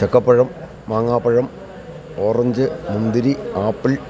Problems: continuous background conversations